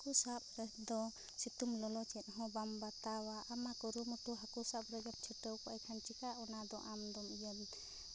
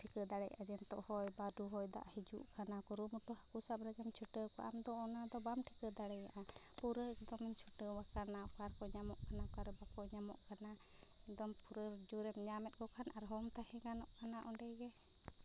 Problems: constant background noise